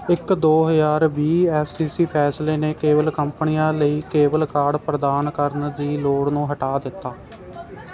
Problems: none marked